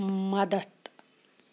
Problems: constant background noise